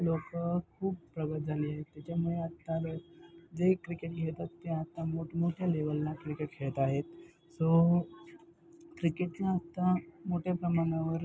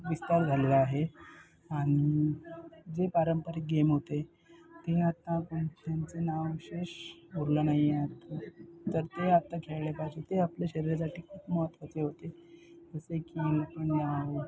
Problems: constant background noise, continuous background conversations